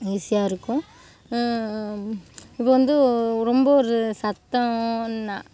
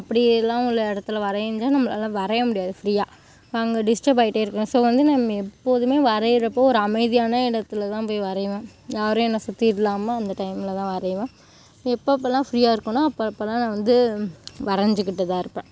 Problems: constant background noise